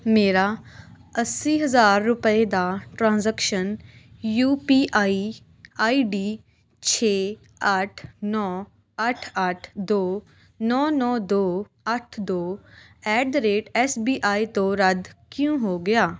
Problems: constant background noise